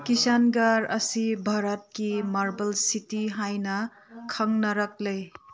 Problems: background conversations at intervals